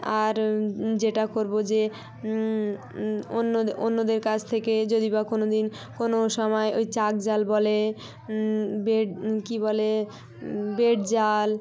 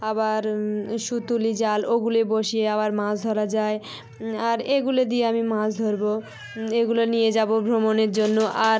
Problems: background conversations at intervals